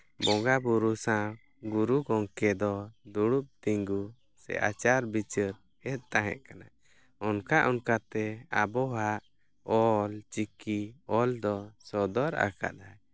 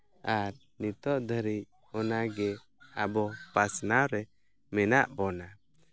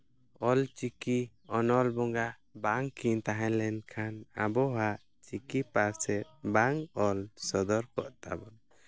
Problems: none marked